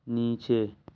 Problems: low volume